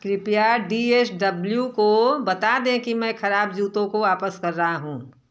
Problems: constant background noise